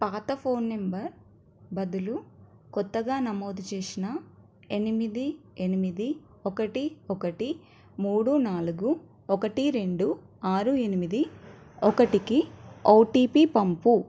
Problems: none marked